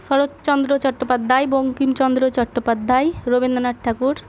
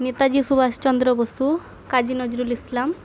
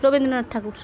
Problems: constant background noise, continuous background conversations